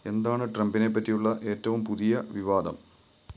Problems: background sounds at intervals